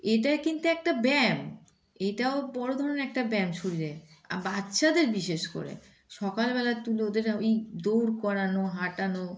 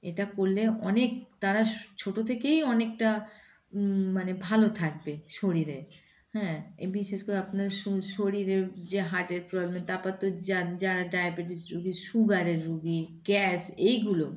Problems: background sounds at intervals